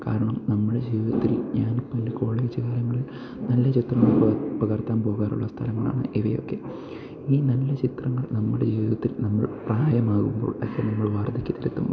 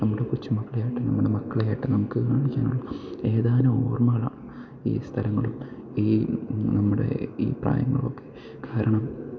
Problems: background sounds at intervals